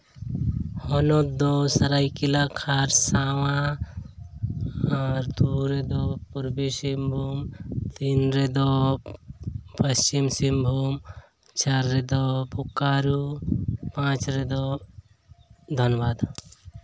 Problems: background sounds at intervals